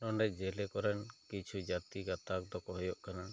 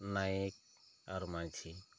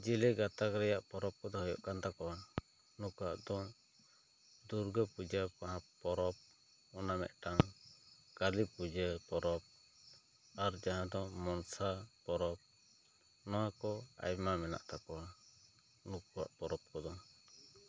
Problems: low volume